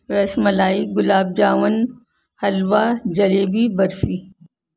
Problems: constant background noise